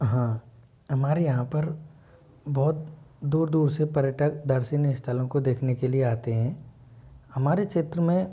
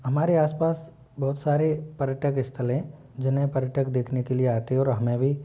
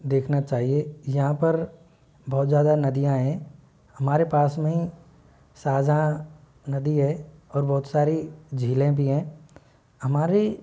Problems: none marked